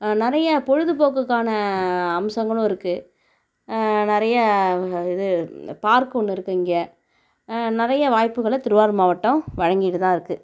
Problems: none marked